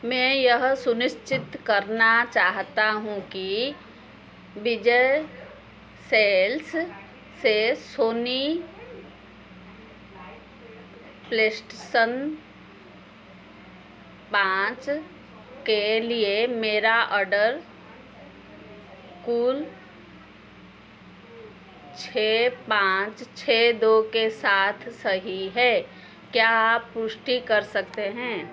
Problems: background sounds at intervals